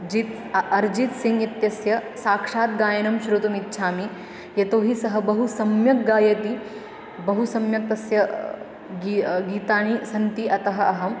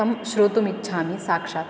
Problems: constant background noise, continuous background conversations